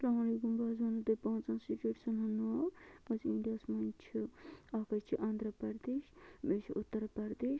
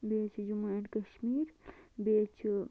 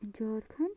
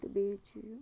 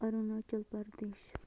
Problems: constant background noise, low volume